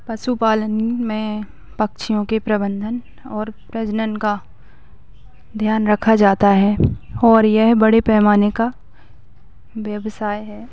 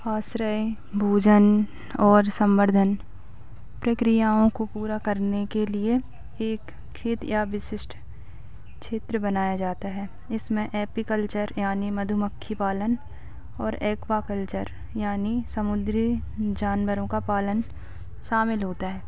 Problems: none marked